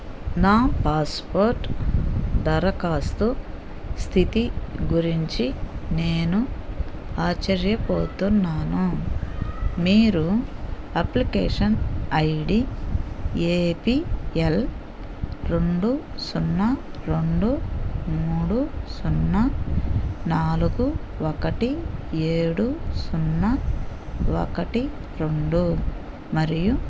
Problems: none marked